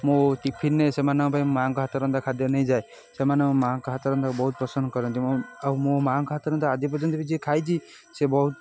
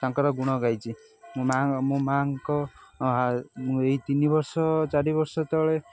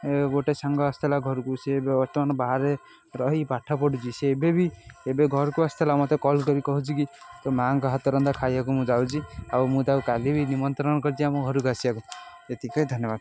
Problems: constant background noise